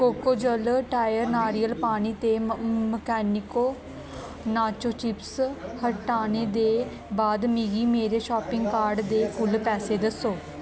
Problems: constant background noise